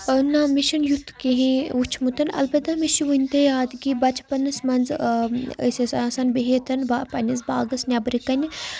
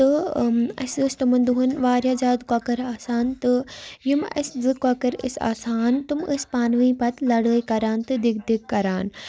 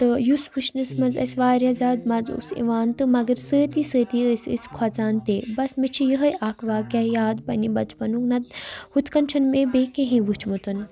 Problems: constant background noise